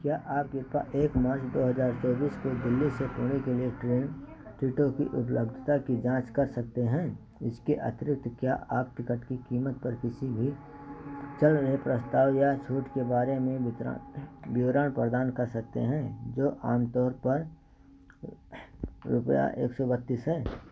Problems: background sounds at intervals